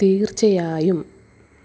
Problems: constant background noise